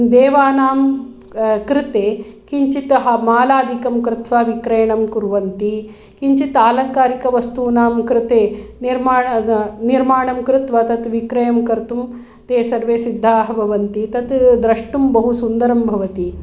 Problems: none marked